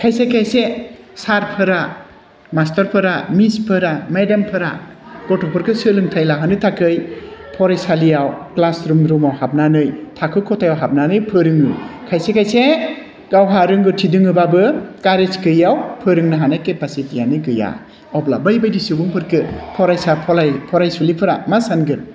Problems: constant background noise